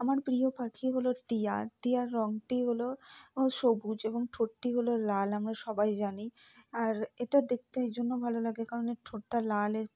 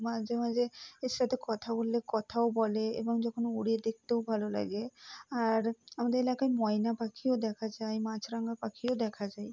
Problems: low volume